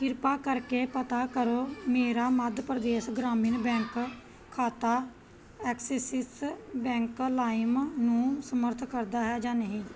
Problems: background sounds at intervals